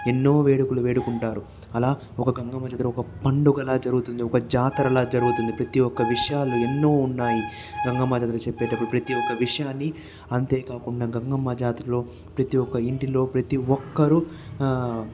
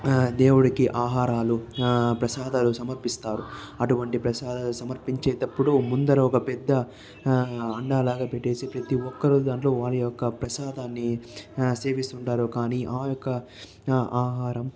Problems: background sounds at intervals, continuous background conversations